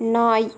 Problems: constant background noise